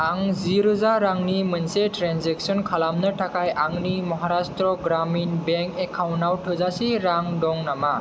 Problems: none marked